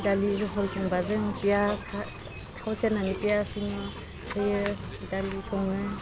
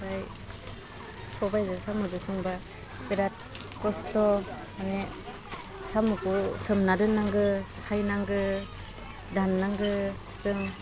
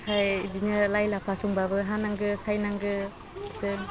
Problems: constant background noise